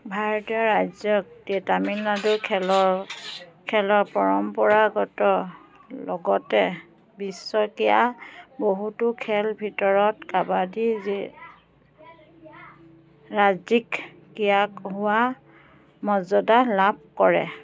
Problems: constant background noise, background conversations at intervals